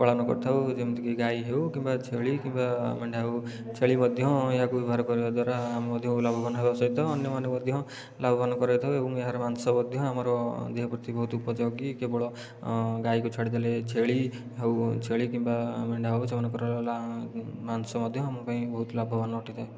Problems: background sounds at intervals, low volume